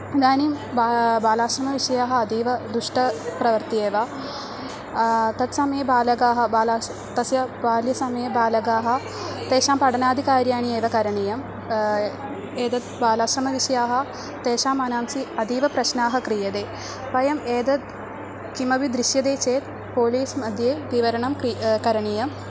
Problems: none marked